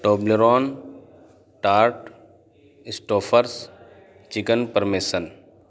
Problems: none marked